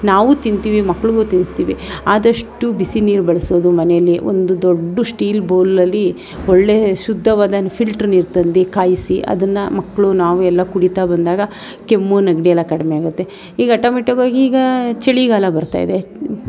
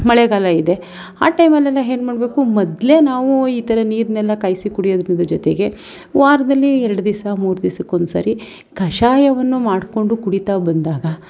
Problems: none marked